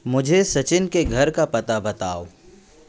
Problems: constant background noise, background conversations at intervals